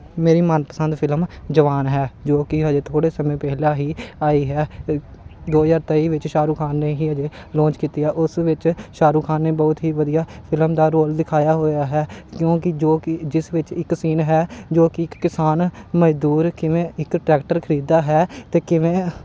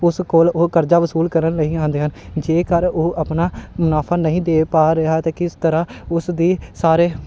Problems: constant background noise